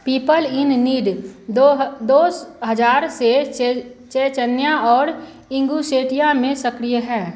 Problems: constant background noise